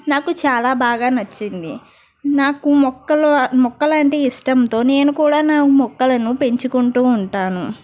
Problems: background sounds at intervals